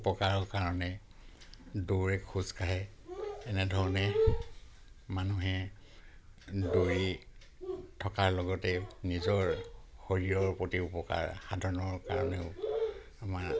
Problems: none marked